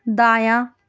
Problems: none marked